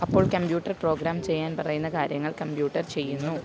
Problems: constant background noise